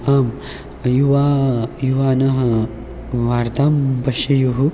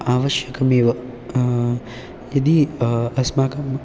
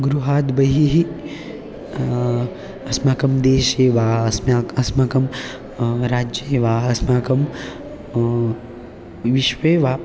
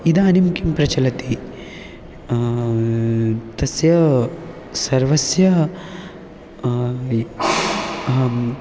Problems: none marked